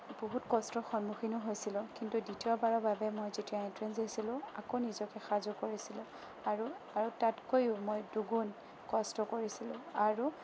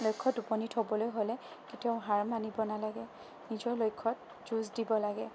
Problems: none marked